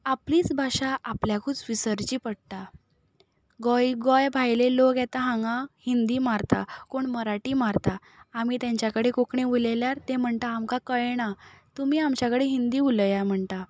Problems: none marked